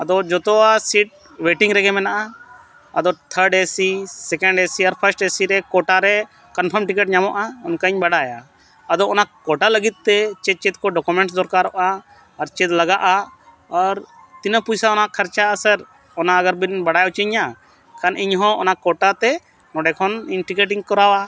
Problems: none marked